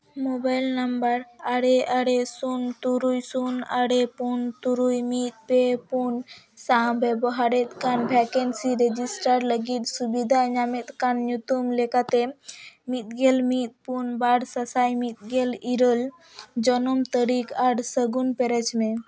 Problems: background sounds at intervals